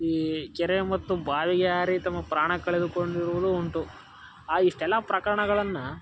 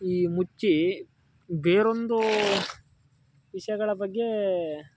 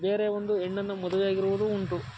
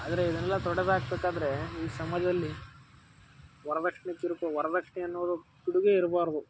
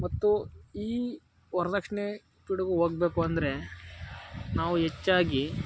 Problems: background sounds at intervals